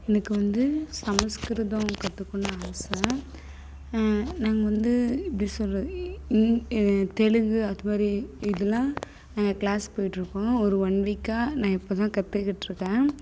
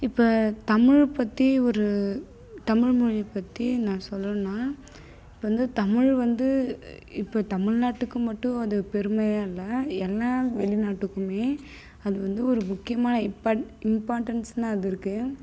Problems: constant background noise